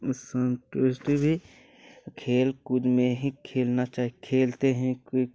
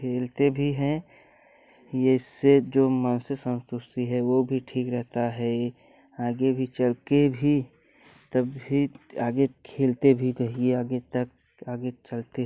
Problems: constant background noise